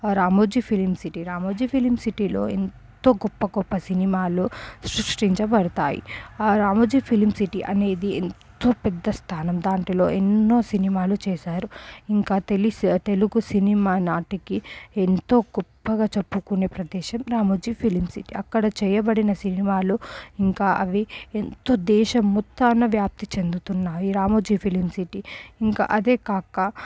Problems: low volume